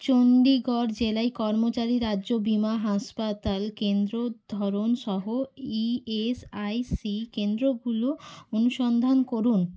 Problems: background sounds at intervals